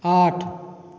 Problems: none marked